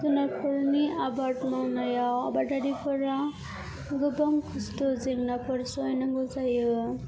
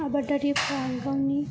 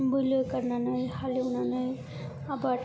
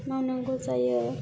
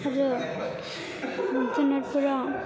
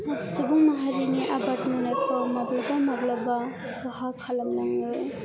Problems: background sounds at intervals, background conversations at intervals